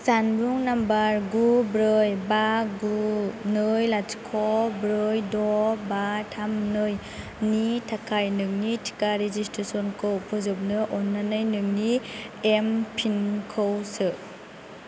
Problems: none marked